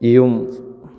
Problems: none marked